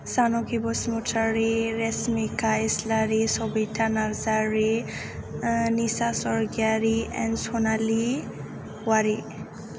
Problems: constant background noise